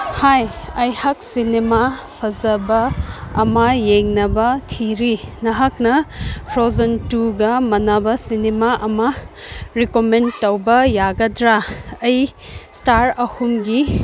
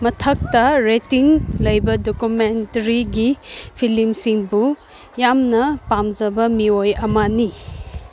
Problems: background sounds at intervals